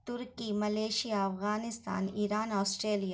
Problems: none marked